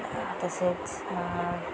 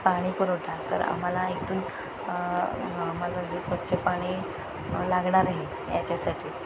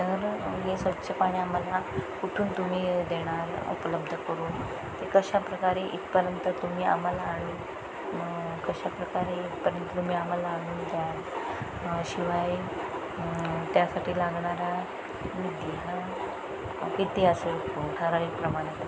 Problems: constant background noise